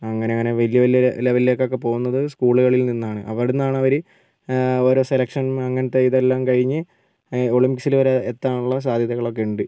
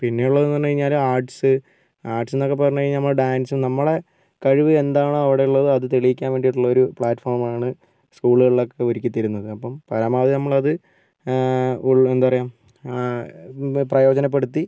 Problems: none marked